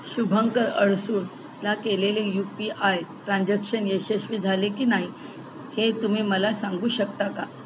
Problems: constant background noise